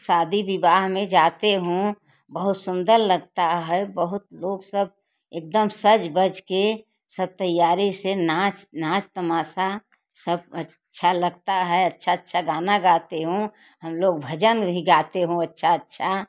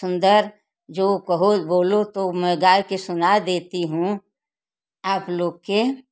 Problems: constant background noise